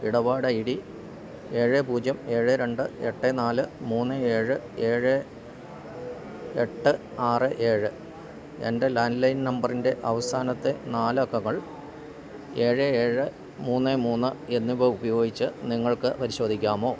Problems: constant background noise, low volume